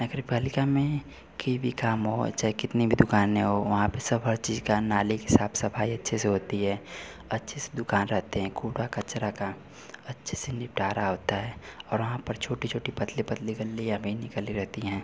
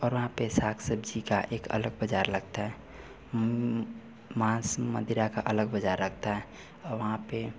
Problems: none marked